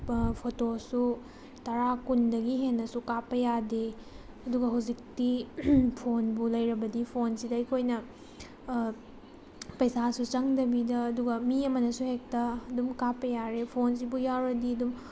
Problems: constant background noise